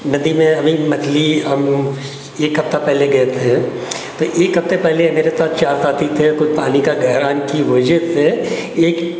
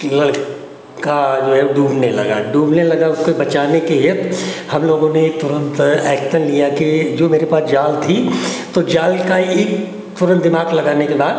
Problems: constant background noise